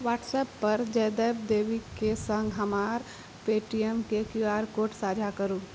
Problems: constant background noise